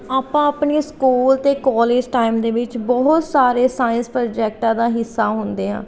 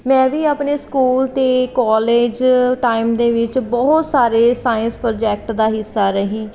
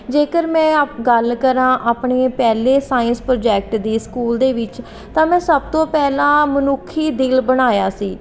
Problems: none marked